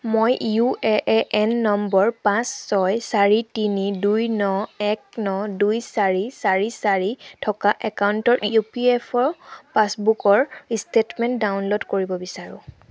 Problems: none marked